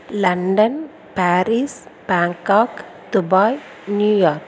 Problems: none marked